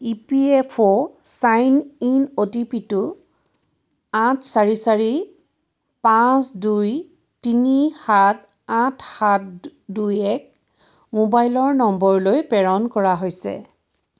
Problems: background sounds at intervals